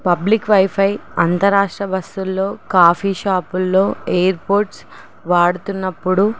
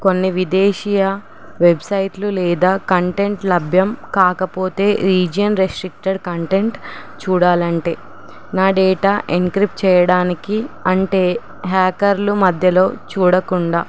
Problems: none marked